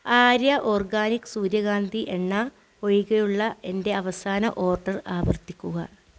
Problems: none marked